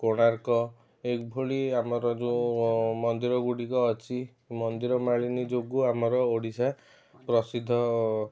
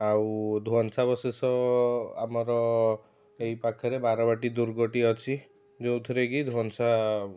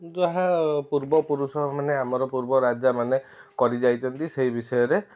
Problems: background sounds at intervals